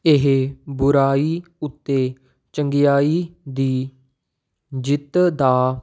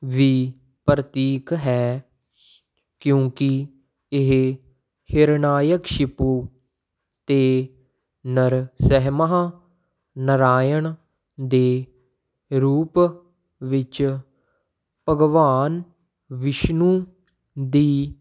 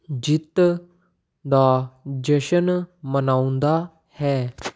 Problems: background sounds at intervals